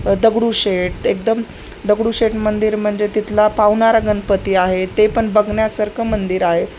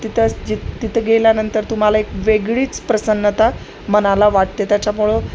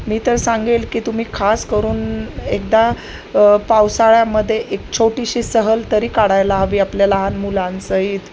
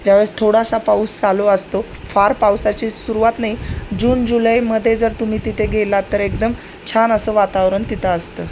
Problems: none marked